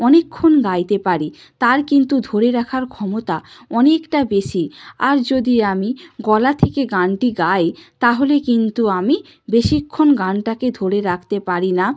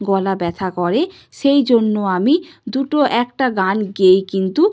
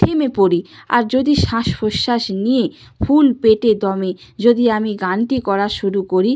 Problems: none marked